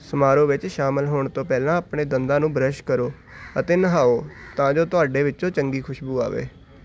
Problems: none marked